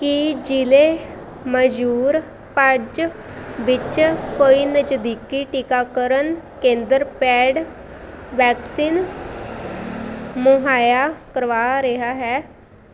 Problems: constant background noise